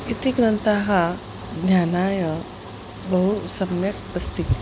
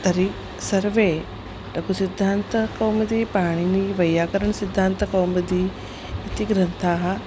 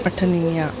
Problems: none marked